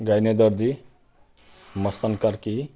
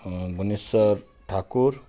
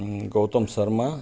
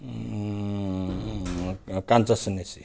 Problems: none marked